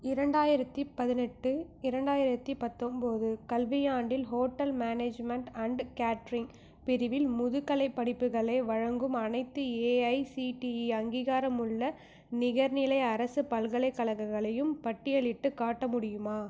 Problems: none marked